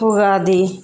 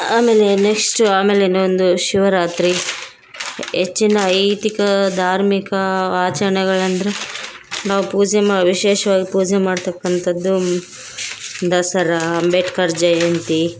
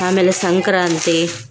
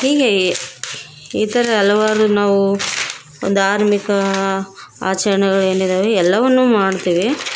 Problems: background sounds at intervals